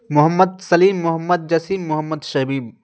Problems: constant background noise